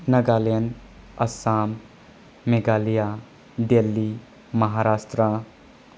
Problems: constant background noise